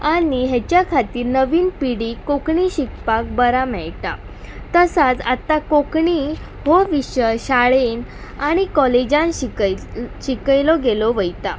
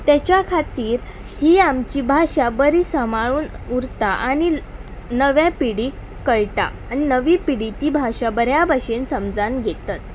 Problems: background sounds at intervals